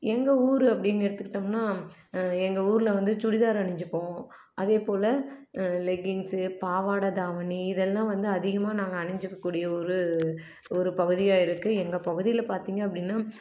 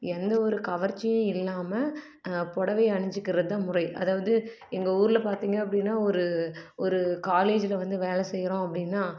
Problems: none marked